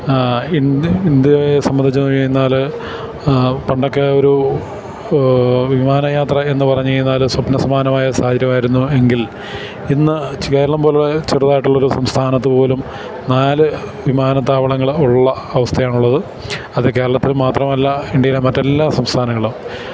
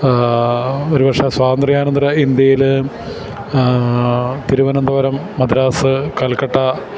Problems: constant background noise